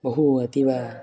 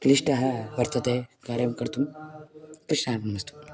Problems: none marked